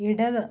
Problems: low volume